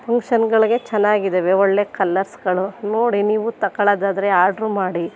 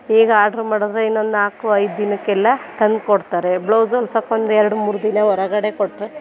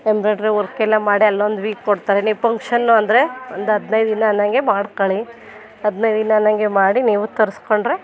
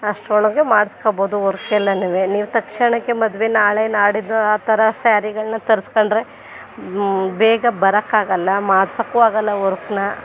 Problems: background sounds at intervals